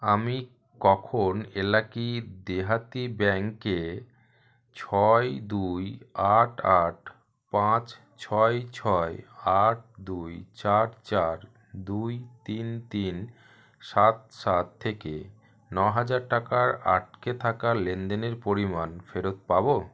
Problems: none marked